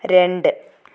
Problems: none marked